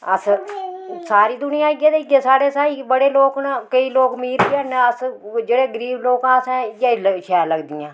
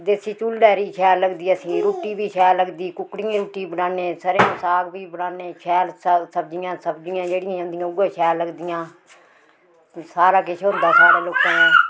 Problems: background sounds at intervals